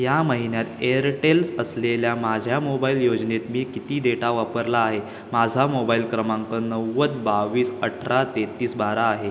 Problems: background sounds at intervals